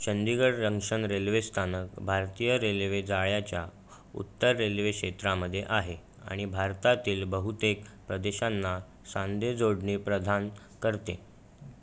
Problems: none marked